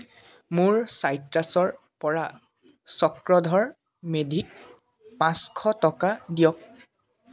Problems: background sounds at intervals, background conversations at intervals